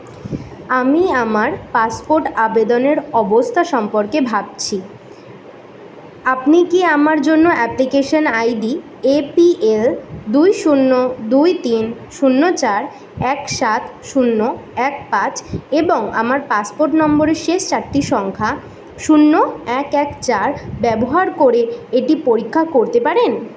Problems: background sounds at intervals